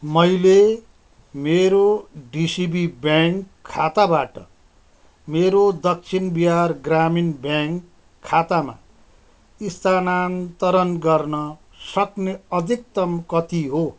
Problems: none marked